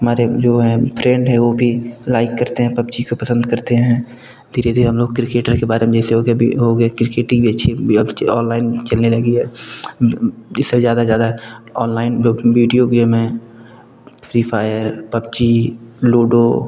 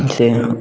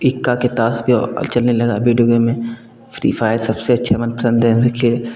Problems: constant background noise, background conversations at intervals